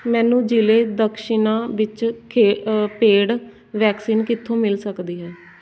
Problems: constant background noise